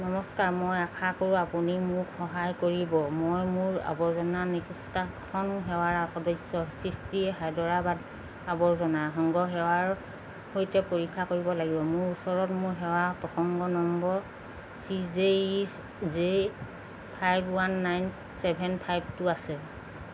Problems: constant background noise